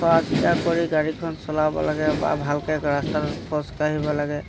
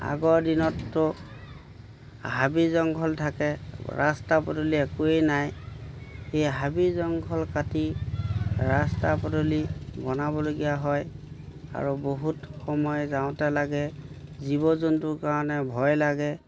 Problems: background sounds at intervals